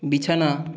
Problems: none marked